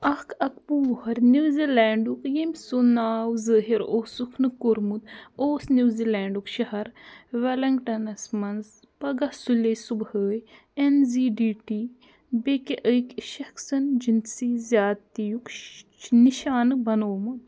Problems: background sounds at intervals